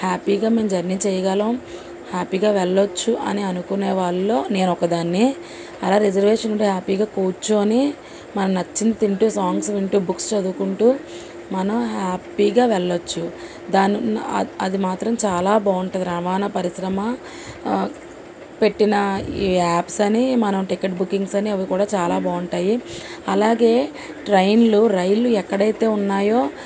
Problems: constant background noise